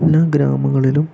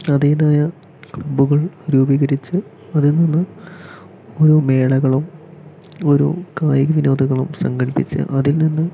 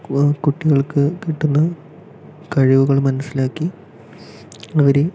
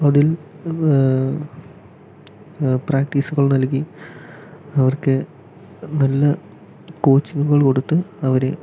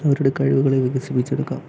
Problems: low volume